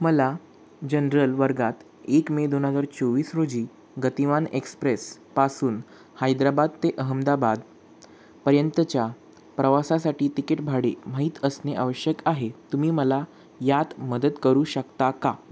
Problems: constant background noise